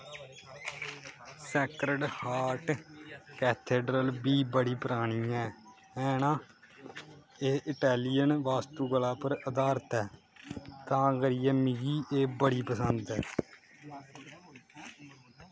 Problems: constant background noise